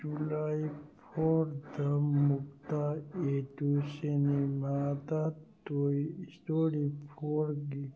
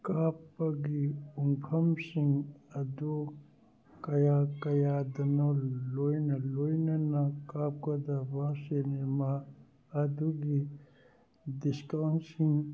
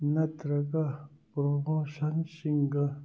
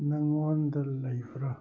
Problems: background sounds at intervals